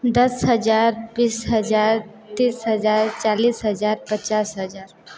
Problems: background sounds at intervals, continuous background conversations